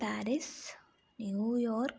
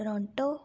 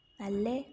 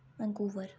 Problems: none marked